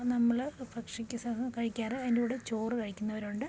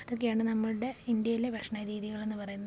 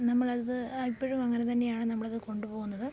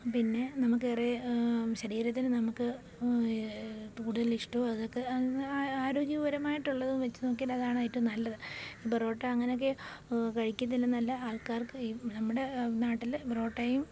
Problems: background sounds at intervals, low volume